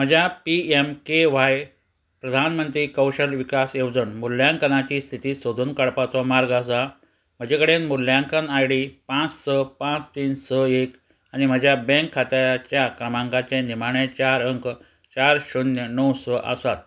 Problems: none marked